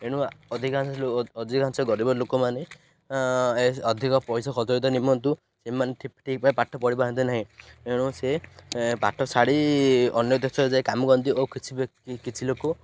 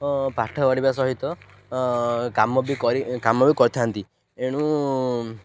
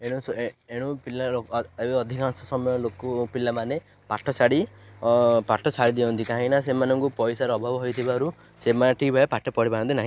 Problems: none marked